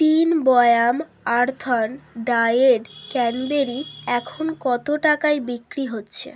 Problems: constant background noise